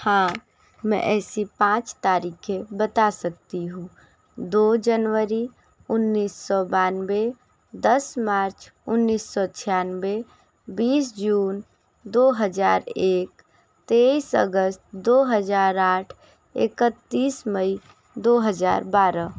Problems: constant background noise